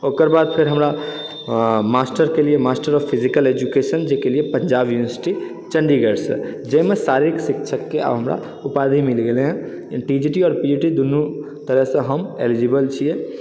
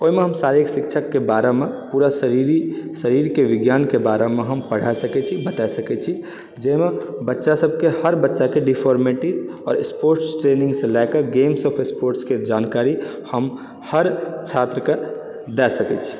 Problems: background sounds at intervals